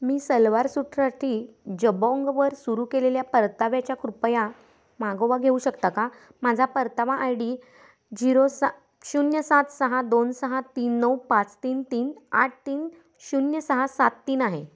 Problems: none marked